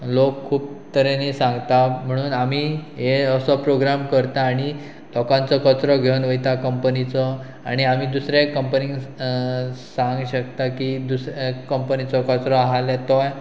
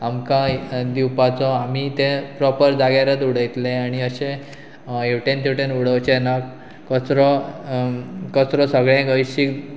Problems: none marked